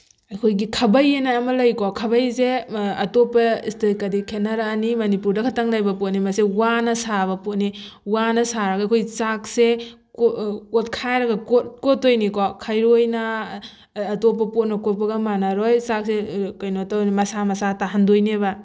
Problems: background sounds at intervals